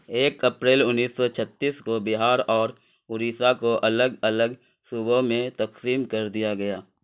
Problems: none marked